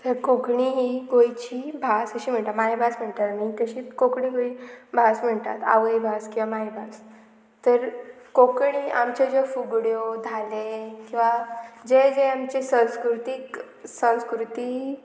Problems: constant background noise